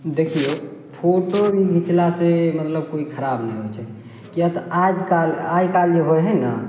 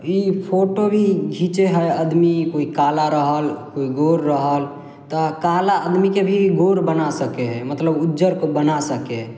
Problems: none marked